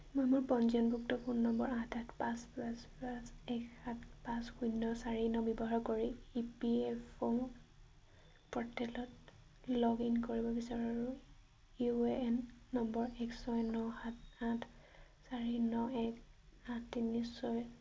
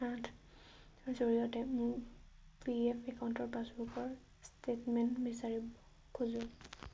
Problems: background sounds at intervals